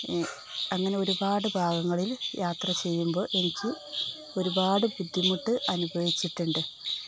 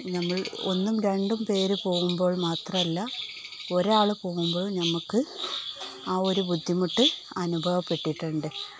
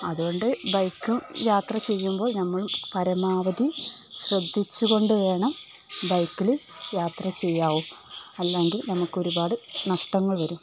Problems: none marked